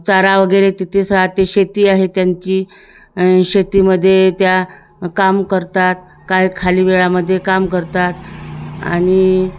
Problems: none marked